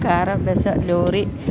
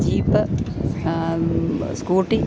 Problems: none marked